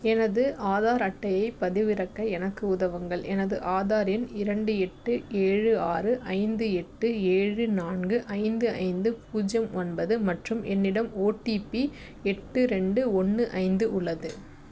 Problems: none marked